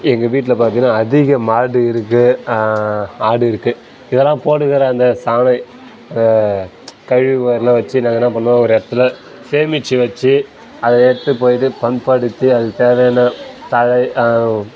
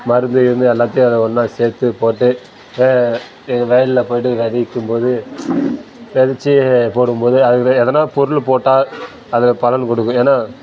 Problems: background sounds at intervals